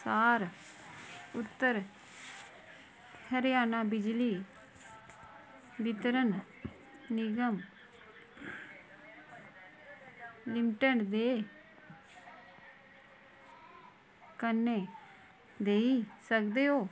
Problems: constant background noise